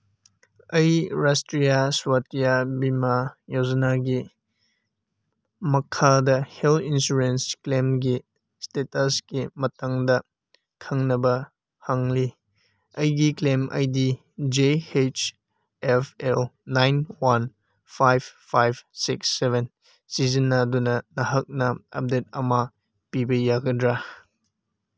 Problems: none marked